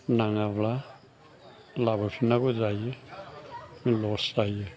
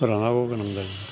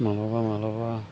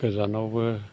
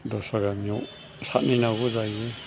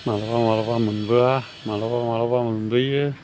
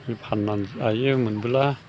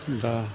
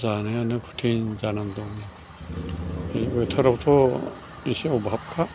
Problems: constant background noise